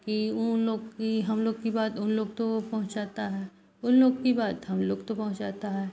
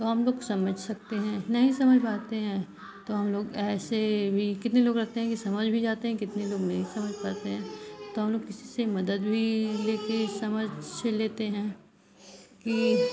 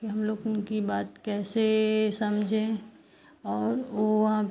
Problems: constant background noise